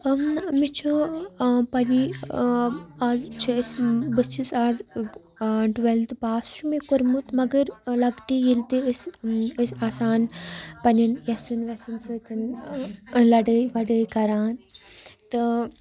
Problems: constant background noise